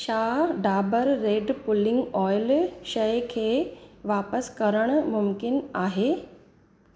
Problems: constant background noise, echo